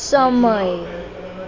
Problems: constant background noise, continuous background conversations